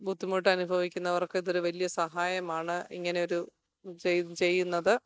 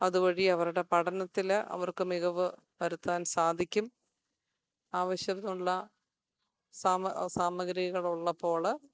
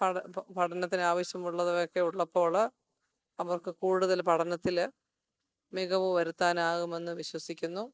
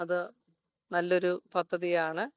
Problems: none marked